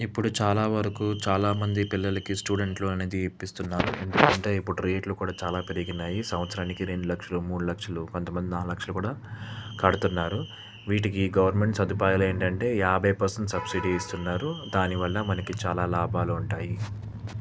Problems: constant background noise